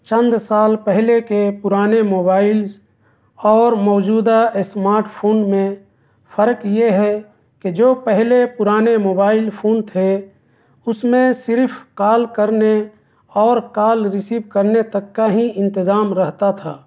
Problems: none marked